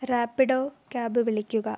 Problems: low volume